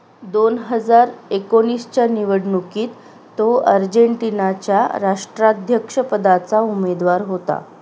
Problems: none marked